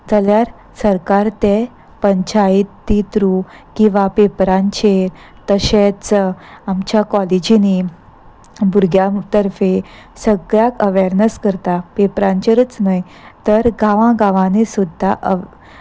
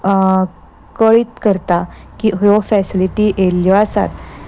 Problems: constant background noise